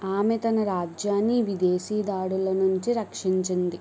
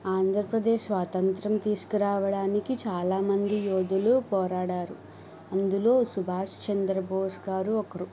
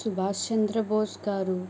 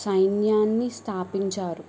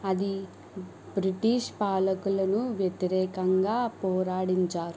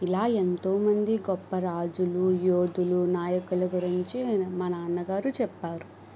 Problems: background sounds at intervals